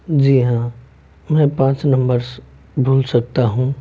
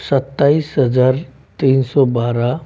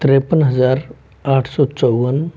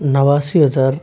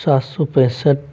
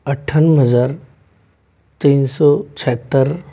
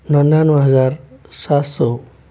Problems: background sounds at intervals